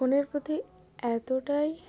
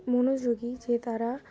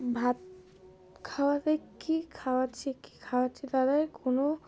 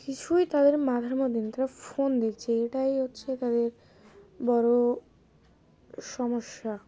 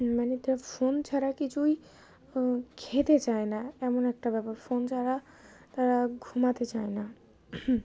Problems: constant background noise, continuous background conversations